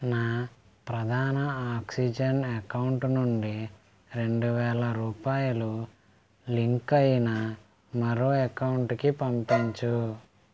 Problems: background sounds at intervals